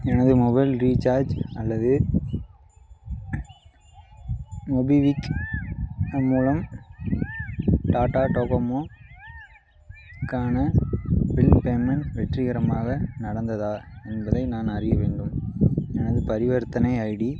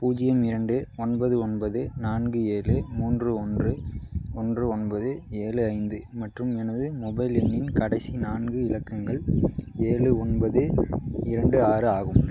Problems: background sounds at intervals